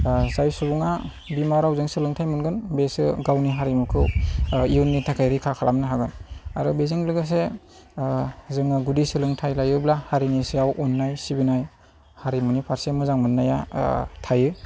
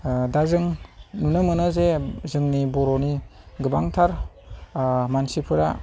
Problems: none marked